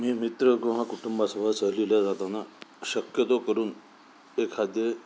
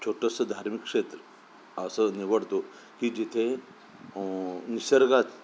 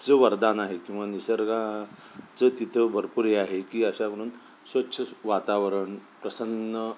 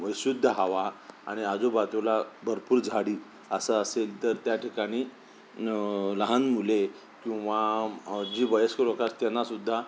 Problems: none marked